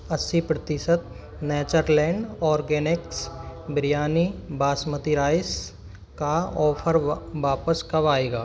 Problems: constant background noise, background conversations at intervals